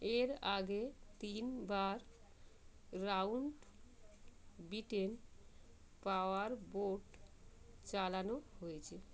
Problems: constant background noise